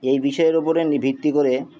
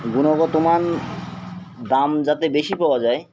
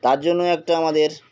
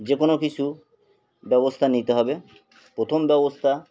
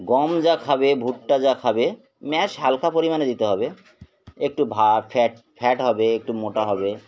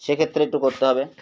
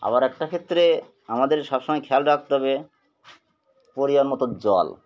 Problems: constant background noise